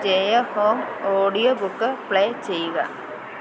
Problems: constant background noise